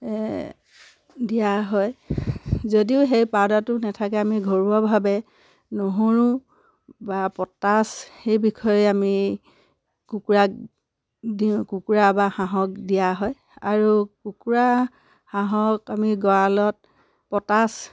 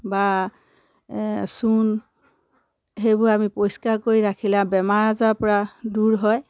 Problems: none marked